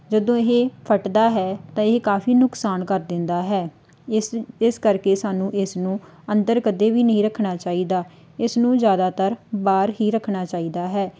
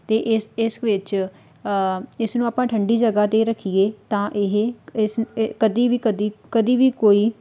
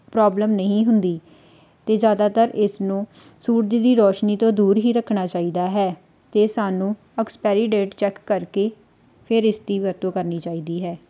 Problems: background sounds at intervals